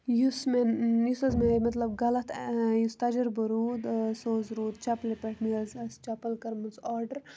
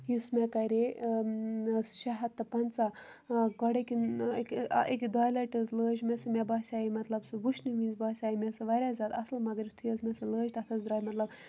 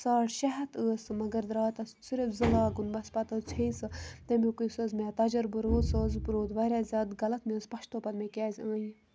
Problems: constant background noise